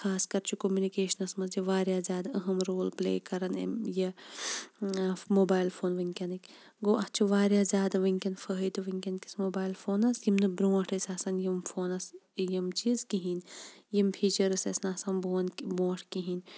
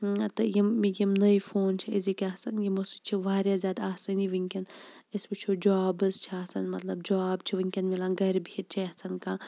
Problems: background sounds at intervals, low volume